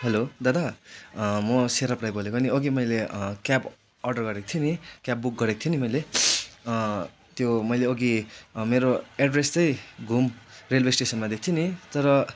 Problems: constant background noise